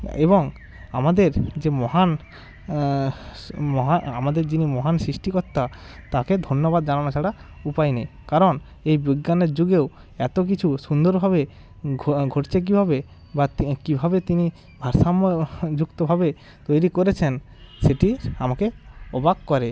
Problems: none marked